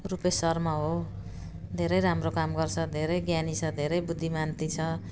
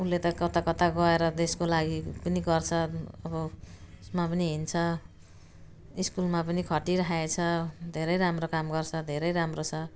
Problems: none marked